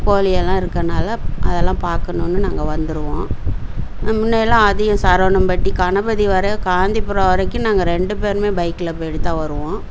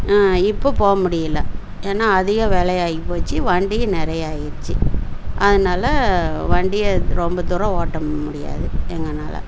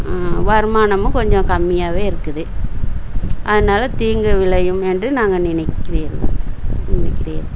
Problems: constant background noise